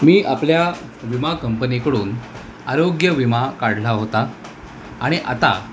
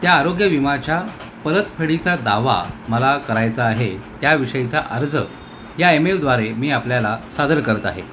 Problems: constant background noise